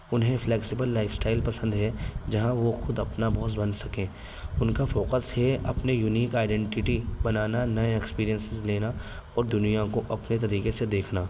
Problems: constant background noise